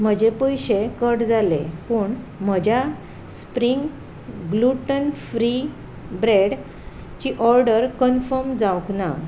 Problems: background sounds at intervals